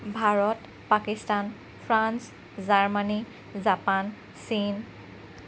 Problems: constant background noise